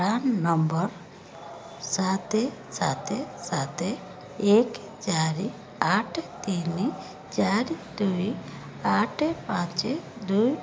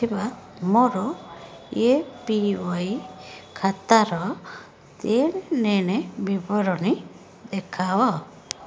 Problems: background sounds at intervals, background conversations at intervals